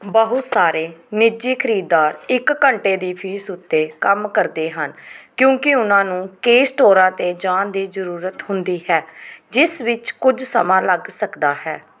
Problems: background sounds at intervals